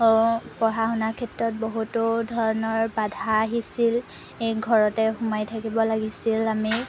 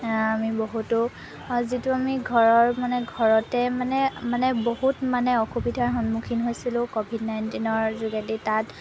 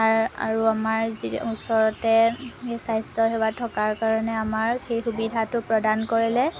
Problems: constant background noise